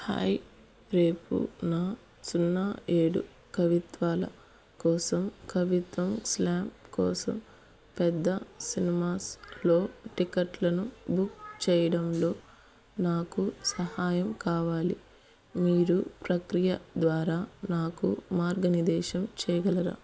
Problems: background conversations at intervals